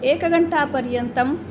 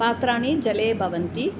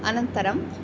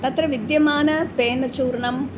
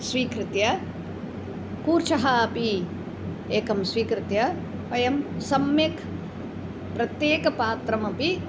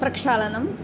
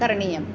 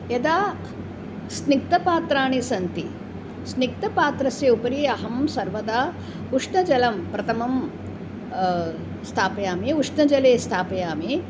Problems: background conversations at intervals